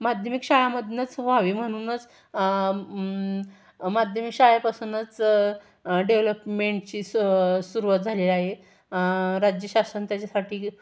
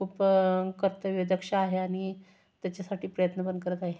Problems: none marked